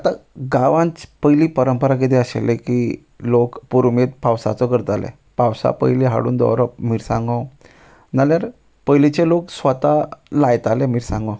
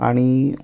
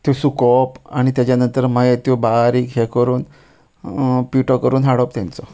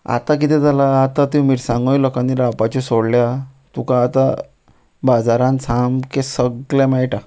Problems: background sounds at intervals